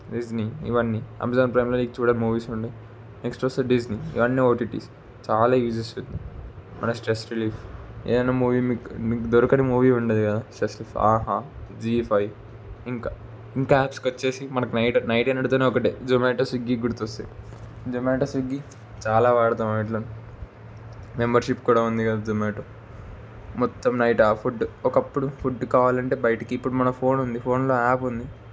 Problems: constant background noise